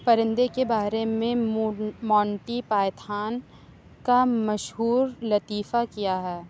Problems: none marked